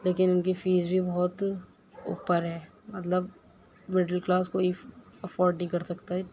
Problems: constant background noise